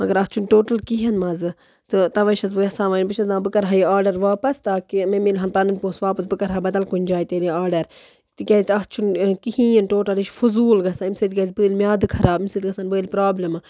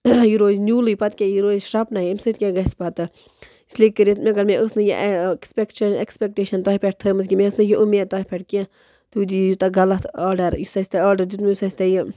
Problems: background sounds at intervals